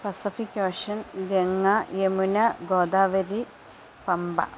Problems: constant background noise, low volume